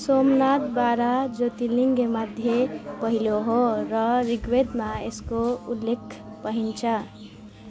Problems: continuous background conversations